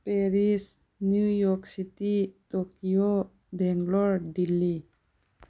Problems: none marked